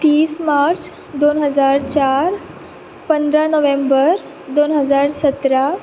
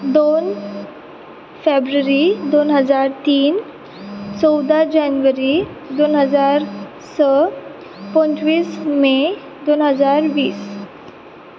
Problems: background sounds at intervals